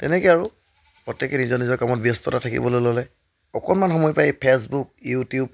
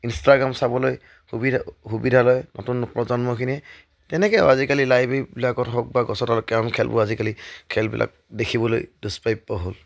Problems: background sounds at intervals